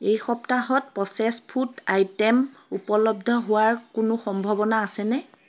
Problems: constant background noise